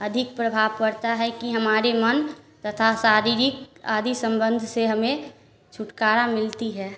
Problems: constant background noise